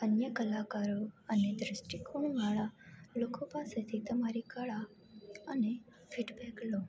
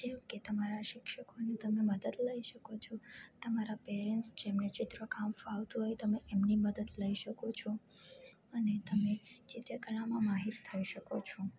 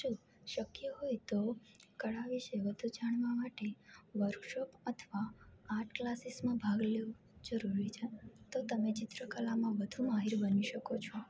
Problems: none marked